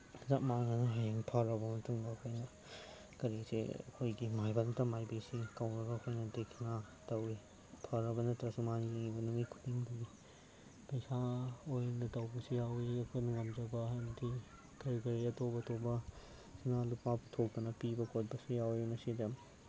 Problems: constant background noise, background conversations at intervals